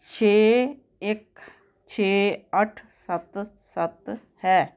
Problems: none marked